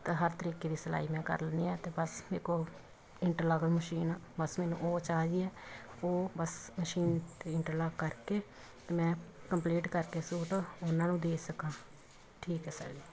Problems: background sounds at intervals